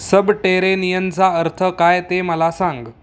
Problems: background sounds at intervals